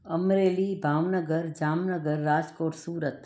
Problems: none marked